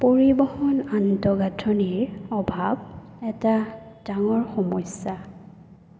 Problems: none marked